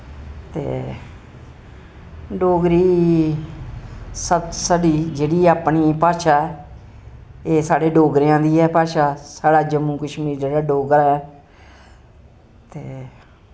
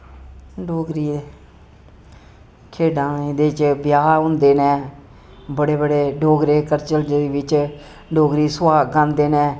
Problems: constant background noise